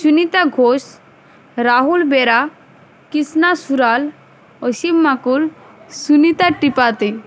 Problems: constant background noise